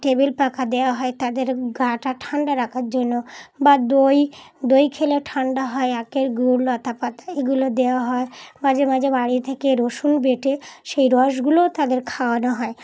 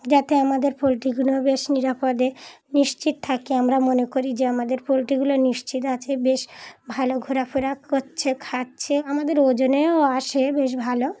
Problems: constant background noise, background conversations at intervals